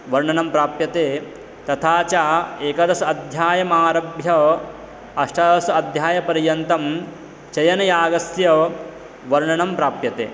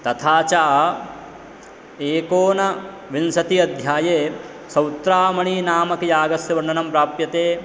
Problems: constant background noise